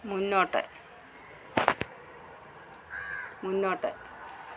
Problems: constant background noise, low volume